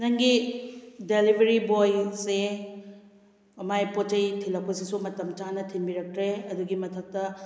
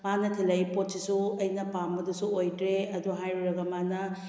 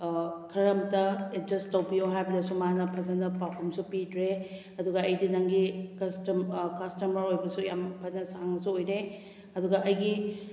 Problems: background sounds at intervals